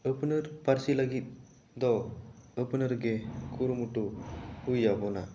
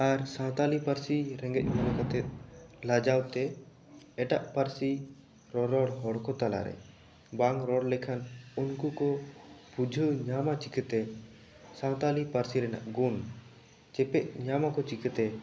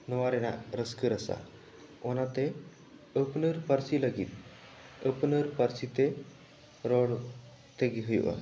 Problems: none marked